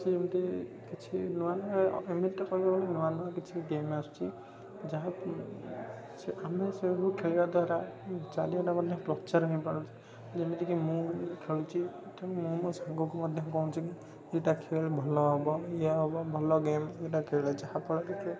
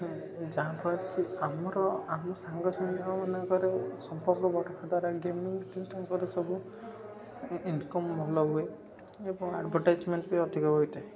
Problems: constant background noise, continuous background conversations